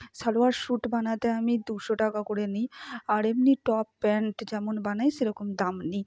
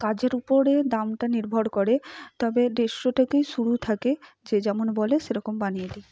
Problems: none marked